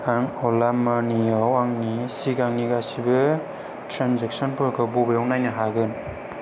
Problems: none marked